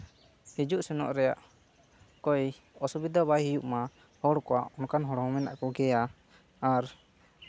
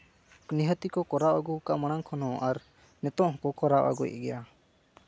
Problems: none marked